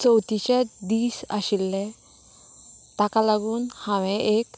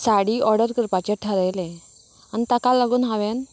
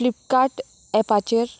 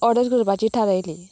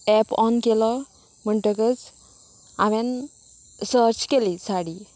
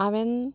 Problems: none marked